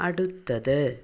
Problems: none marked